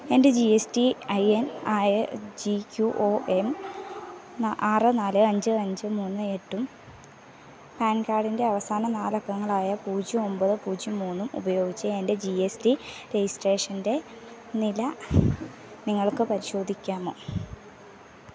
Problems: background sounds at intervals